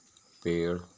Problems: constant background noise, low volume